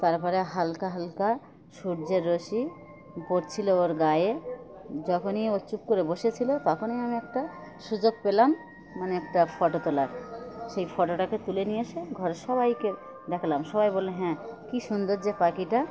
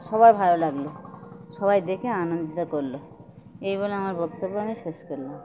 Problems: constant background noise, continuous background conversations